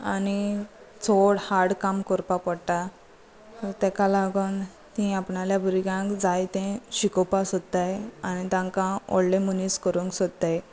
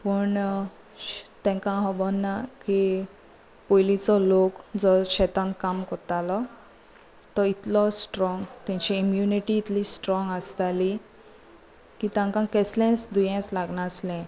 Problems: none marked